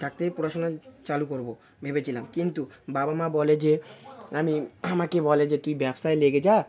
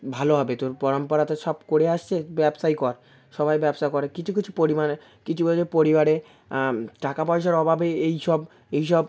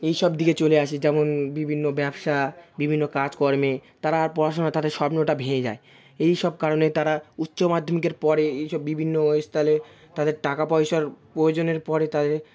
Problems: background sounds at intervals